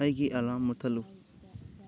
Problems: background sounds at intervals